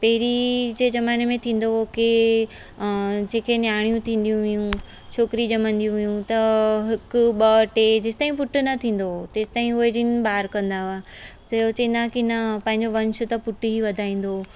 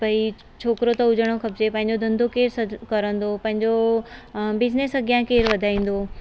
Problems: constant background noise